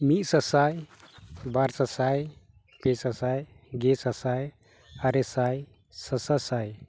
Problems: none marked